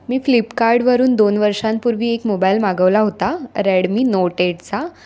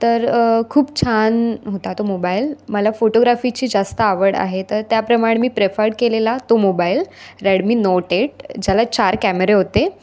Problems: constant background noise, continuous background conversations